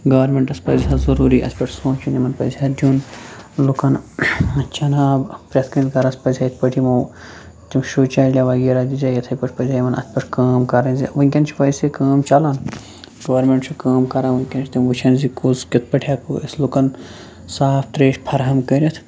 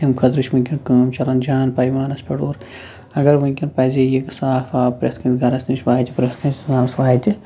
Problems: none marked